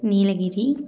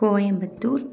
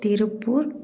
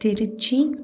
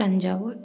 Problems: background sounds at intervals, background conversations at intervals